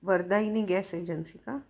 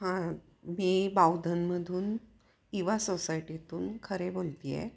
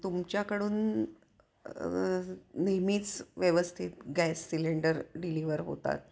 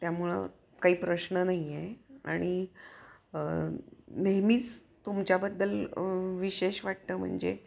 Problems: none marked